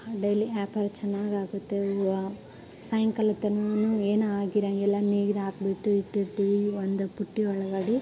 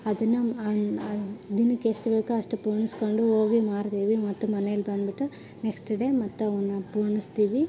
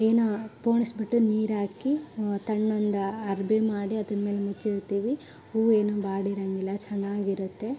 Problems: background sounds at intervals, background conversations at intervals